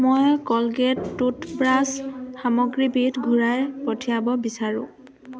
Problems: constant background noise, continuous background conversations